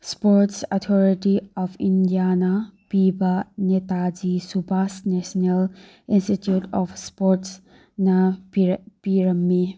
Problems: none marked